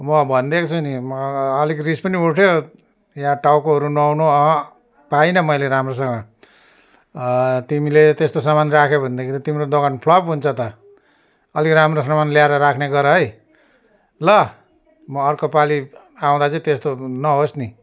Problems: constant background noise